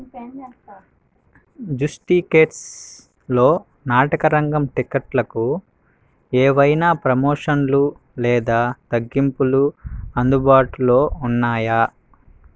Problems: none marked